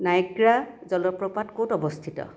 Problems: background conversations at intervals